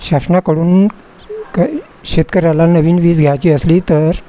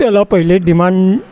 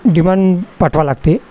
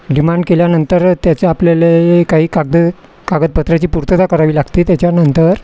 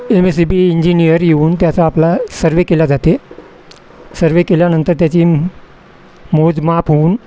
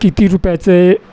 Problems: constant background noise